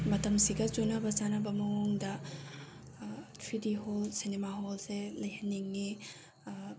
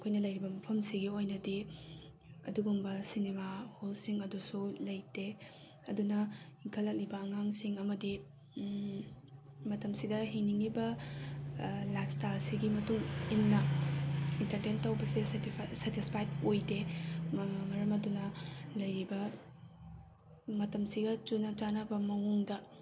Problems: background sounds at intervals